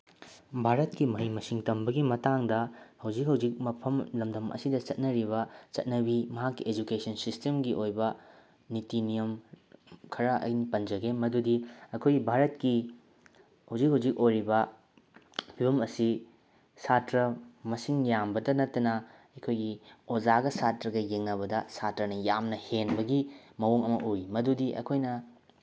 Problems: none marked